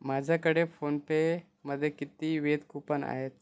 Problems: background sounds at intervals